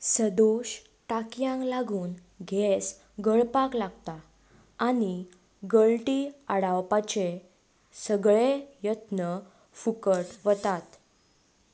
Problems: none marked